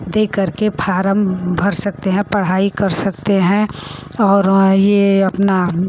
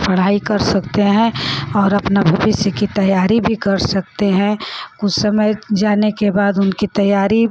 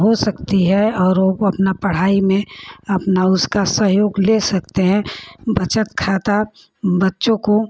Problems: constant background noise